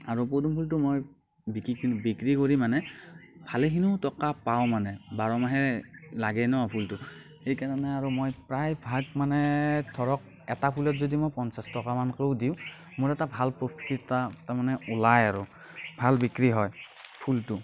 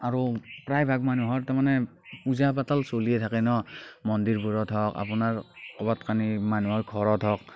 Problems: none marked